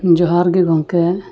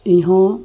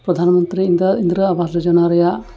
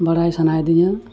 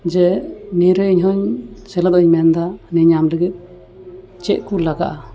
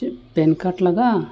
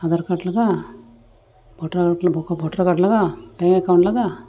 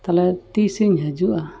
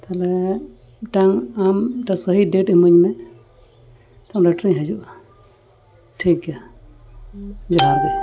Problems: background sounds at intervals